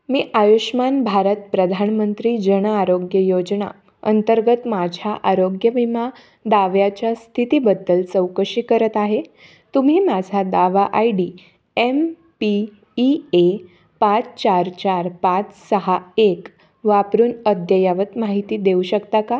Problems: none marked